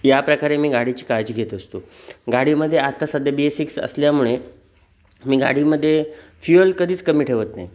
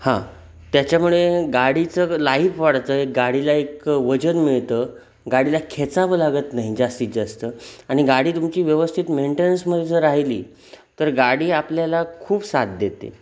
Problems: none marked